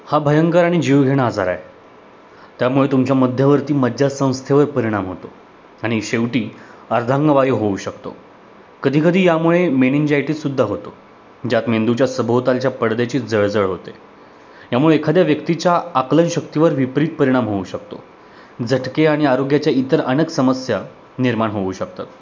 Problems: background sounds at intervals